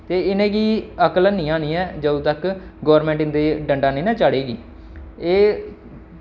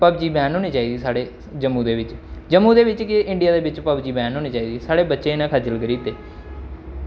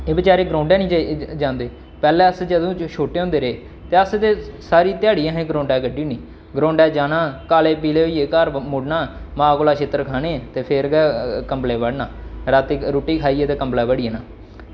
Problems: none marked